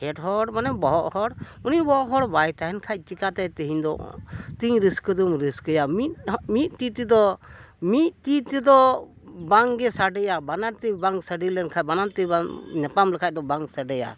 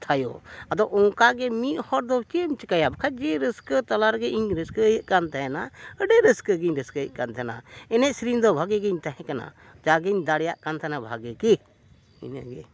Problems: background sounds at intervals